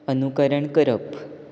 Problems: none marked